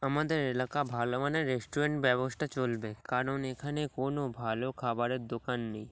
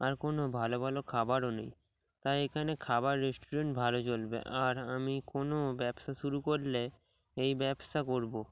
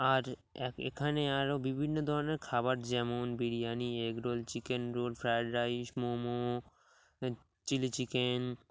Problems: none marked